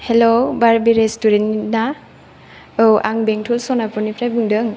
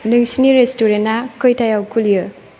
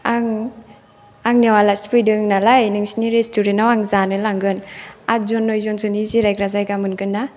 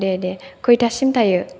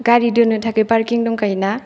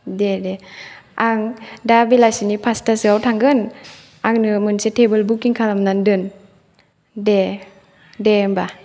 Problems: none marked